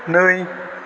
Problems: constant background noise